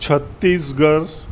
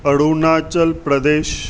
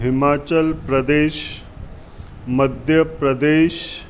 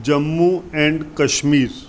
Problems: constant background noise